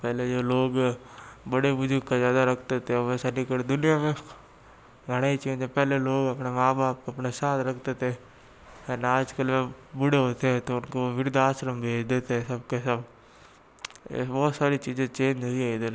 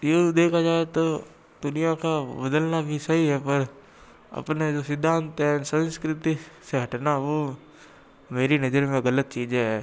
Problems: background sounds at intervals